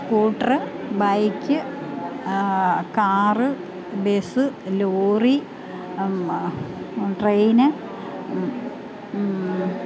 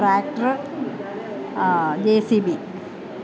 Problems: constant background noise, continuous background conversations